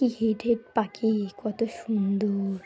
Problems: background sounds at intervals, background conversations at intervals